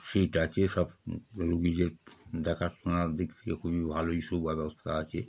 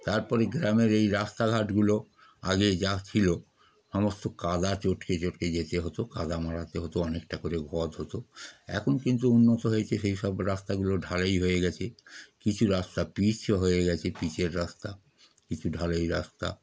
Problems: background sounds at intervals